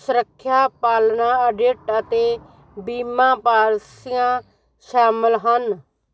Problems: constant background noise